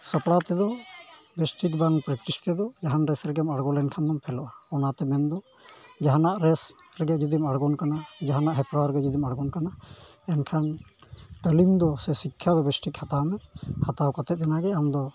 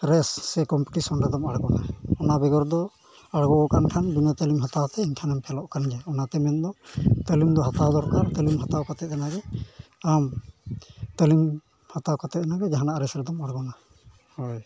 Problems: constant background noise, background conversations at intervals